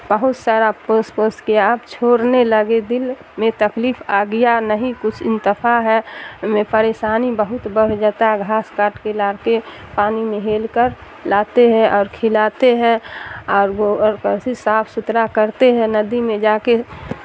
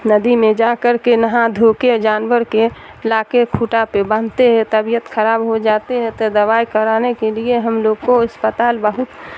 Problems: constant background noise